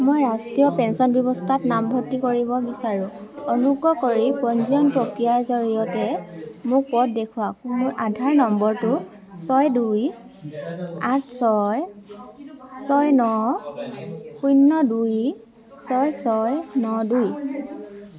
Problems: continuous background conversations